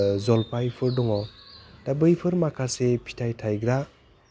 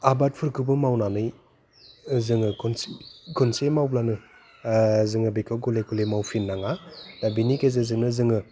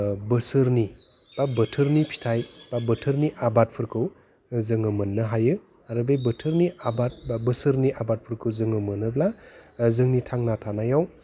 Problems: constant background noise